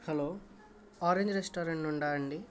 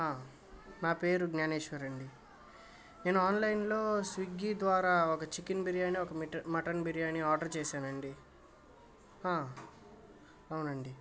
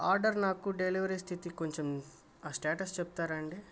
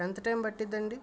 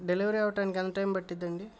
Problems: none marked